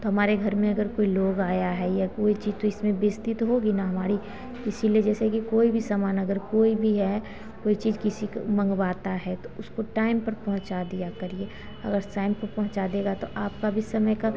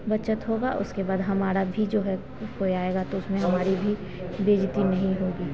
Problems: constant background noise, background conversations at intervals